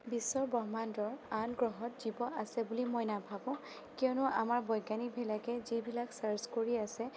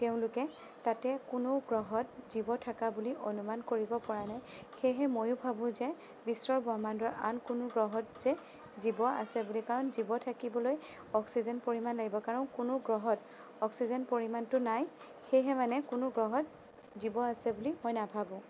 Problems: none marked